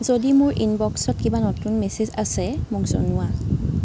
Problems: constant background noise